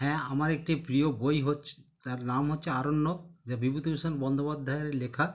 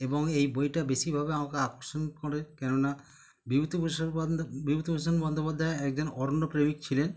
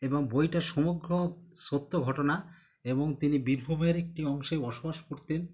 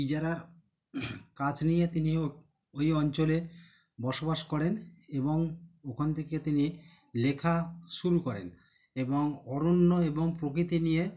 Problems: none marked